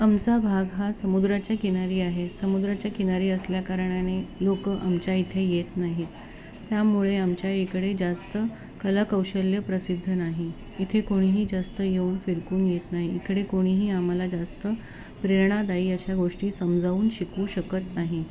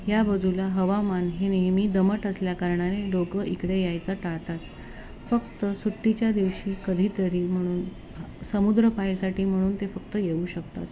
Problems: none marked